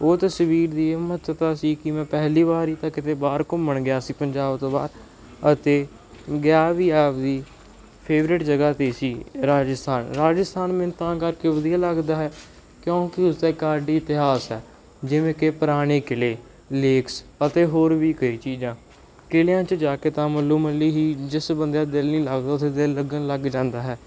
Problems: background sounds at intervals